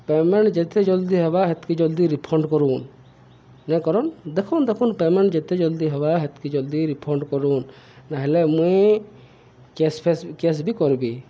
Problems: none marked